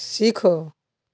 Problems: background sounds at intervals